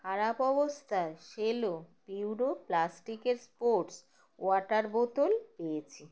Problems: none marked